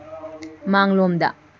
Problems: constant background noise